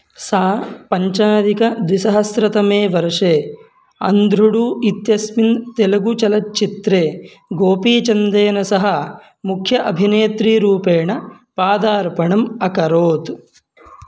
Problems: background sounds at intervals